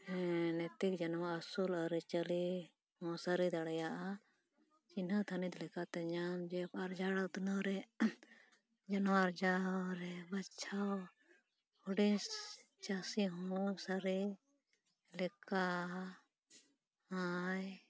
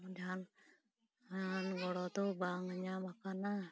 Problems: low volume